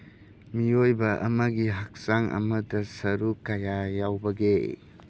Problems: background sounds at intervals